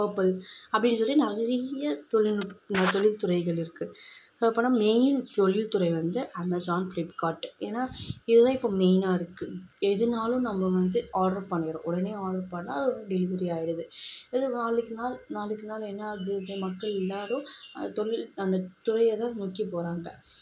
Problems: constant background noise